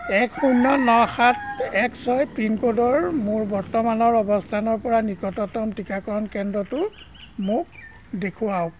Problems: none marked